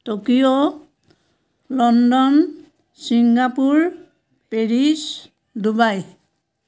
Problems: none marked